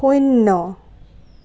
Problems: none marked